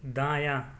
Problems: constant background noise